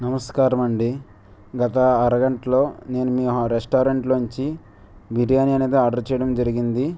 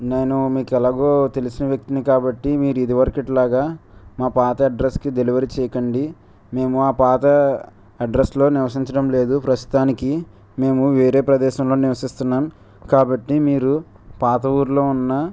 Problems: none marked